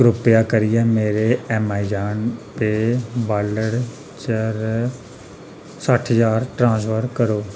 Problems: none marked